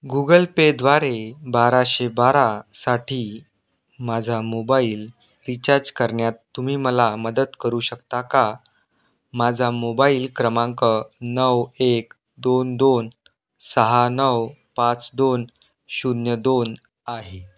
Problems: none marked